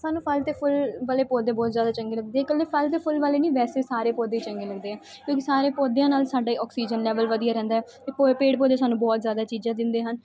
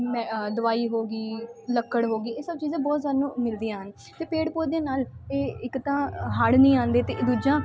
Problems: constant background noise